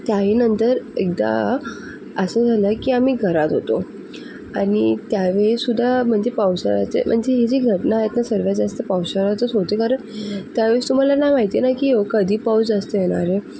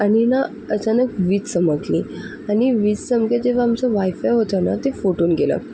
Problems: constant background noise